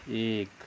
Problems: constant background noise